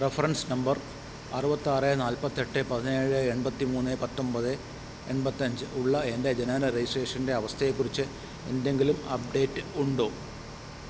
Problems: constant background noise